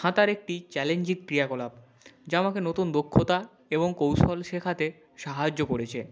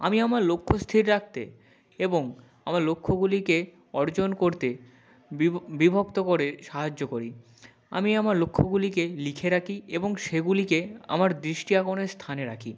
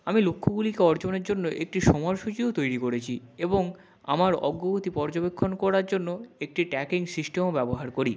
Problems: none marked